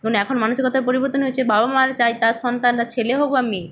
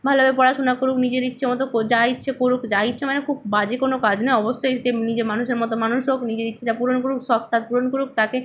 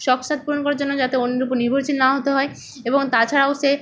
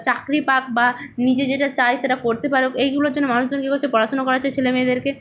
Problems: none marked